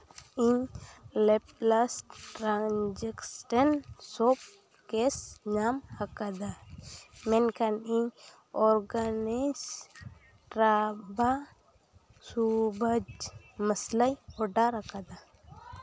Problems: background sounds at intervals